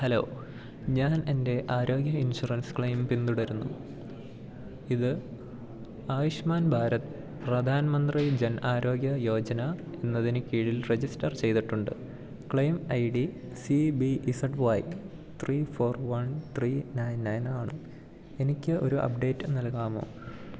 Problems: none marked